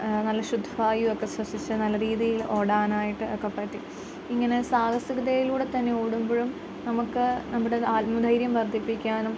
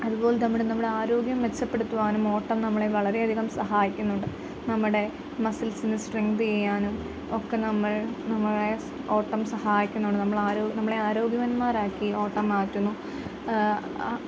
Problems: constant background noise